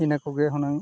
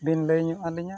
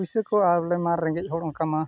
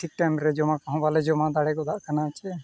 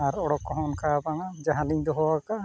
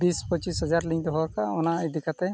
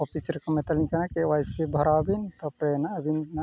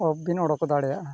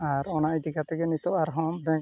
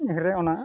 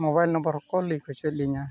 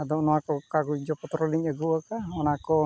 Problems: none marked